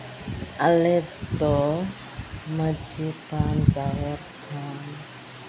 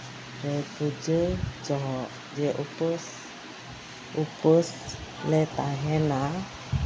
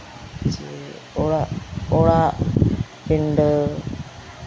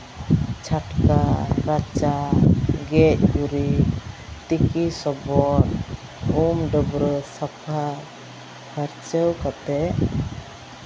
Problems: constant background noise, background conversations at intervals